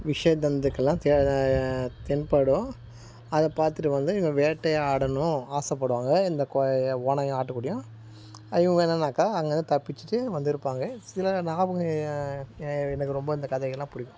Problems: constant background noise